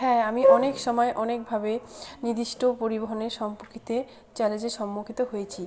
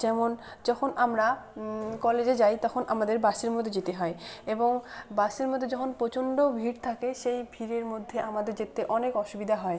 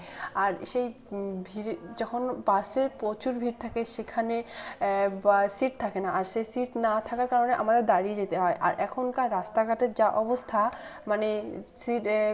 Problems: none marked